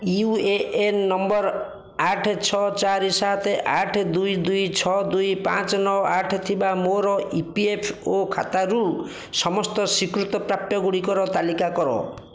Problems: constant background noise, continuous background conversations